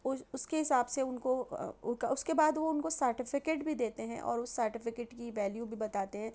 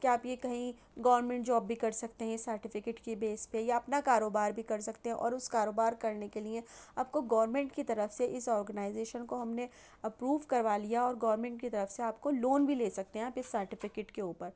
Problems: none marked